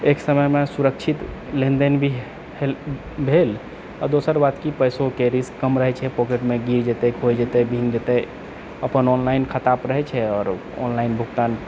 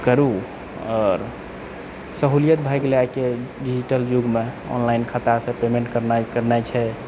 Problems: none marked